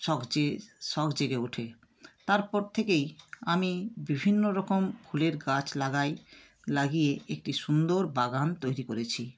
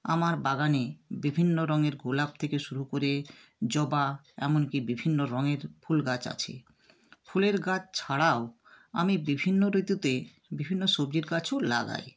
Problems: constant background noise